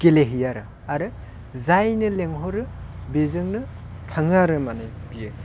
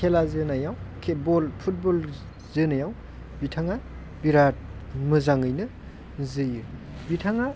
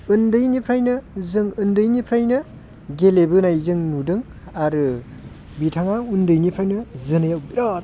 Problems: constant background noise